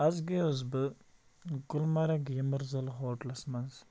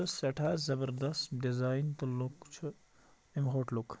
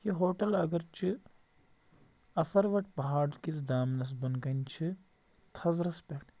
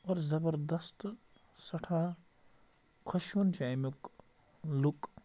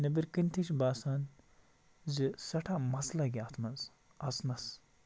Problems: none marked